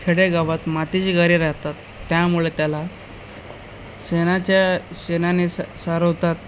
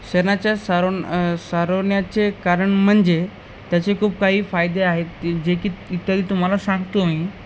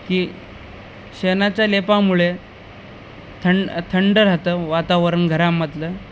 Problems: none marked